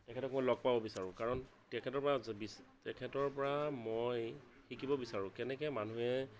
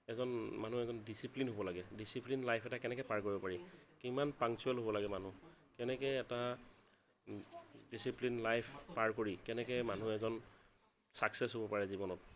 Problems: none marked